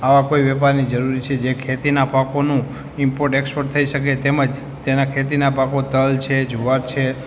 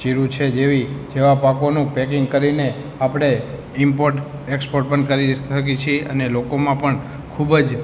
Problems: background sounds at intervals